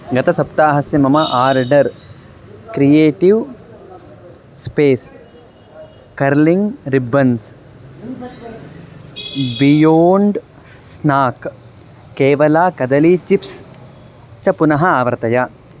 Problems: constant background noise